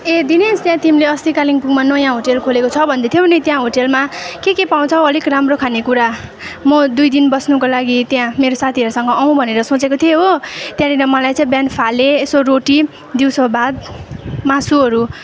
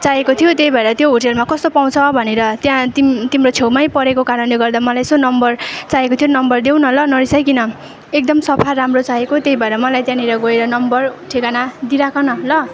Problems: constant background noise, continuous background conversations